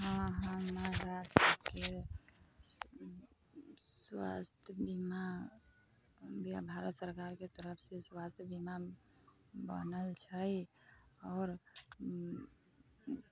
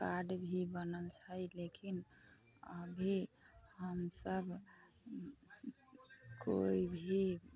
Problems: constant background noise, background conversations at intervals